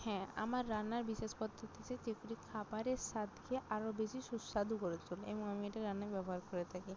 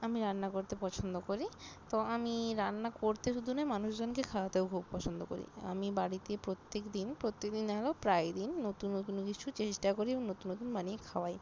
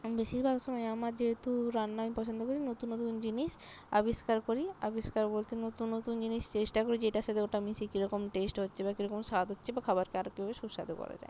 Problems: constant background noise